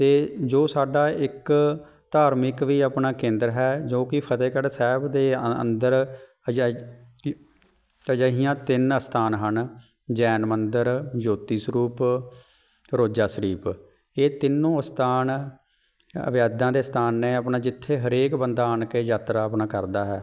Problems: background sounds at intervals